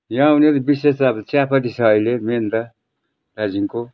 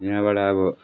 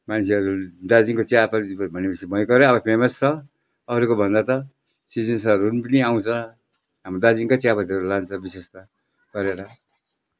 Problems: none marked